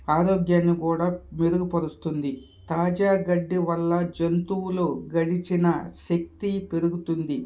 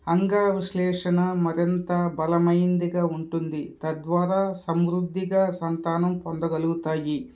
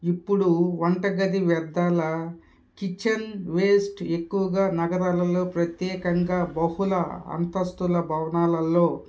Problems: background sounds at intervals, background conversations at intervals